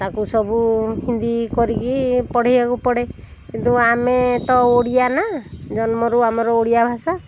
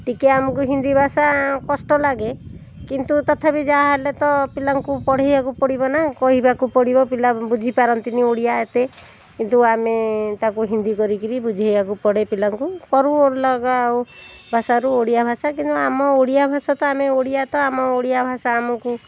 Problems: constant background noise